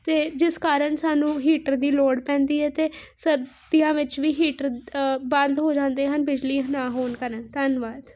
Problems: constant background noise